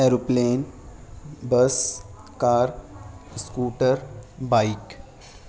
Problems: constant background noise